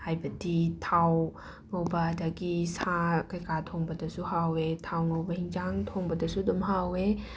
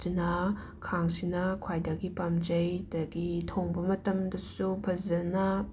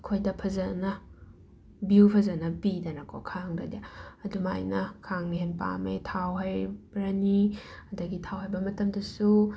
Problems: none marked